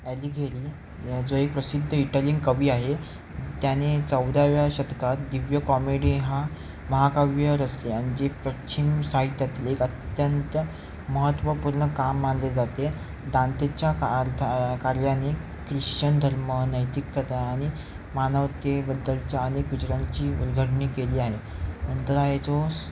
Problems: constant background noise